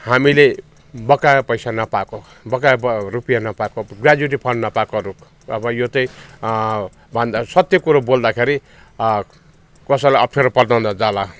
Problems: background sounds at intervals